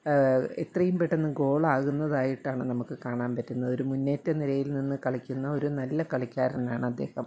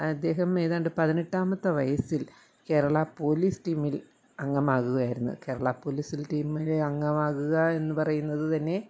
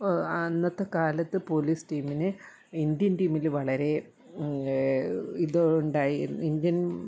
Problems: none marked